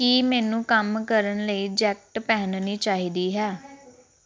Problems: background conversations at intervals